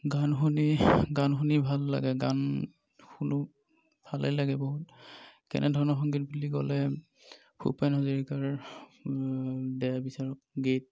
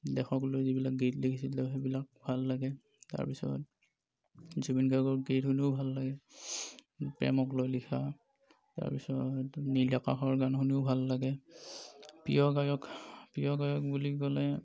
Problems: none marked